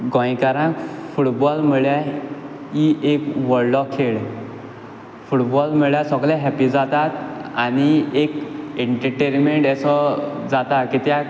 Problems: background sounds at intervals